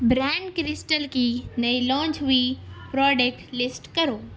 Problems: constant background noise